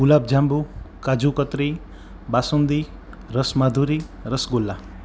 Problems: constant background noise